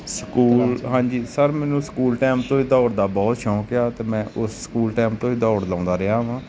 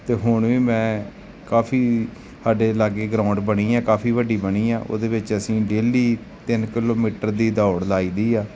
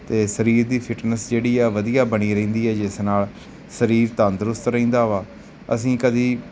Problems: none marked